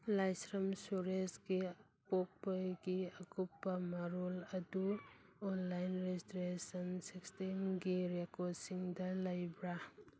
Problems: none marked